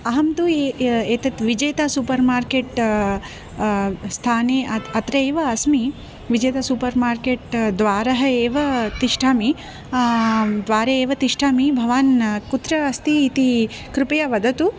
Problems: background conversations at intervals